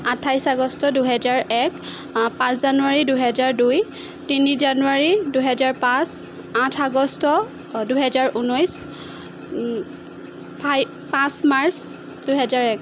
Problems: constant background noise